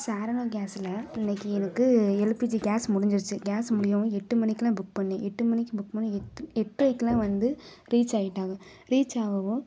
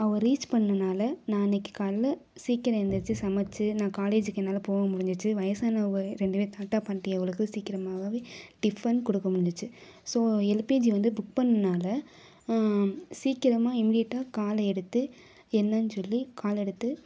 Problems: none marked